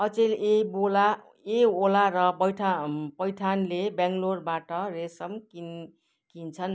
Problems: none marked